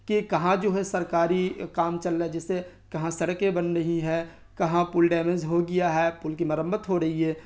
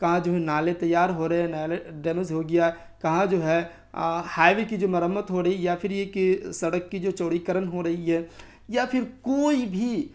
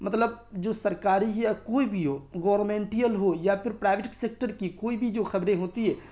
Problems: constant background noise